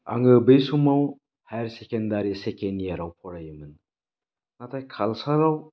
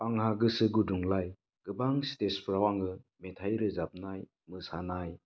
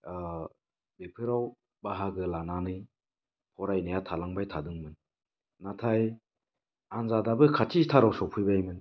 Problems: none marked